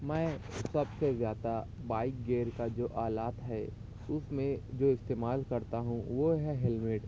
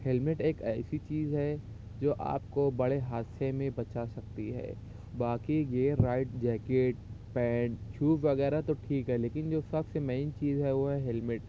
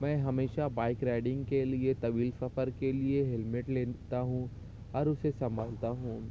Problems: none marked